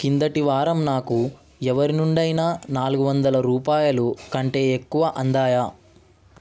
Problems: none marked